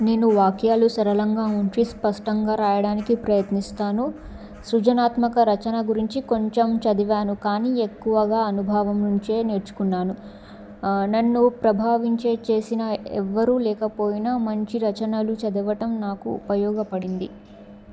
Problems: background sounds at intervals